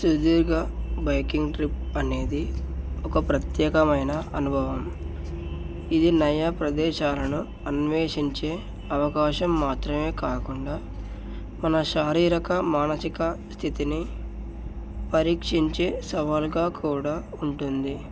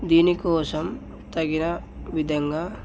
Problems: none marked